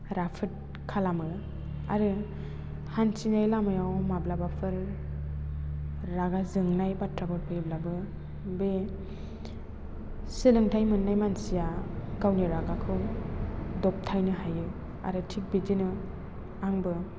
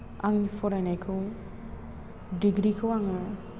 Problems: constant background noise